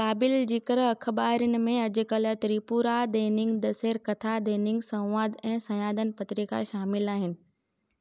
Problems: none marked